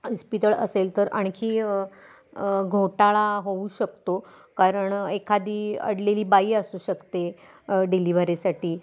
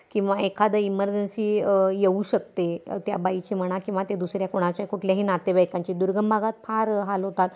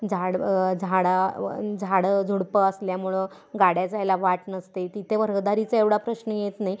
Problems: background sounds at intervals